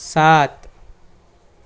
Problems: none marked